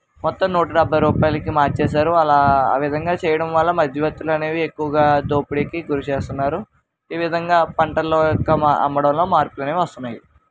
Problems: constant background noise, background conversations at intervals